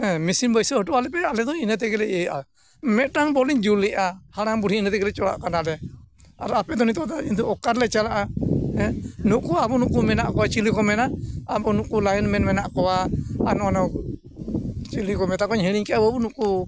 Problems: constant background noise